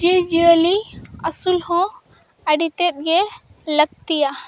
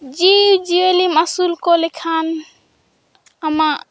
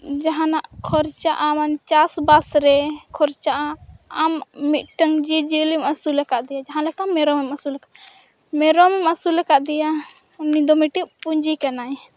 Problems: none marked